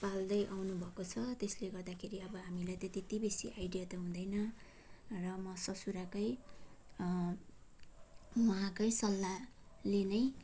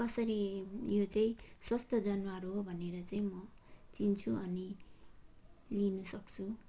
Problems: none marked